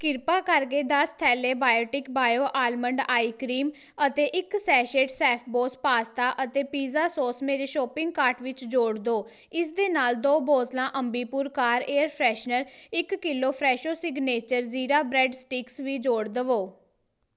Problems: none marked